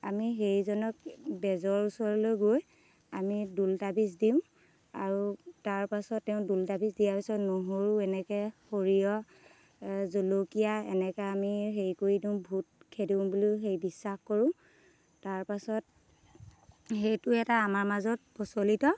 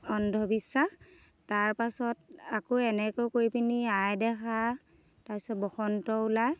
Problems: background sounds at intervals